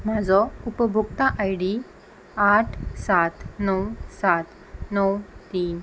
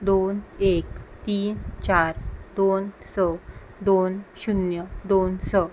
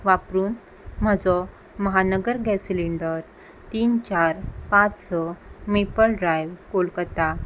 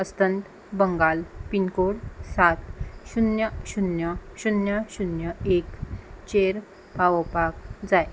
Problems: none marked